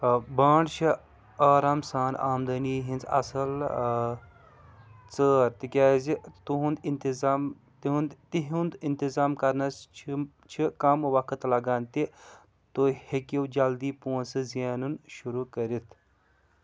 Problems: background sounds at intervals